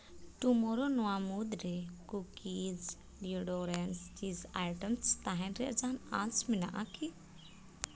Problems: none marked